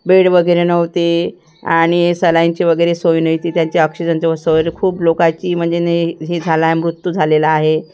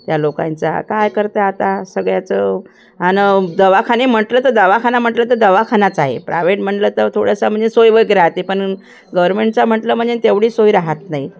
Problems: constant background noise